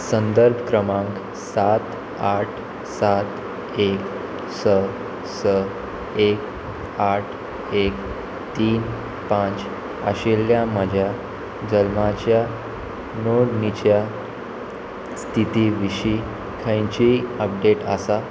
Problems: constant background noise